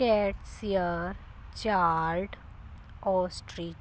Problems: background sounds at intervals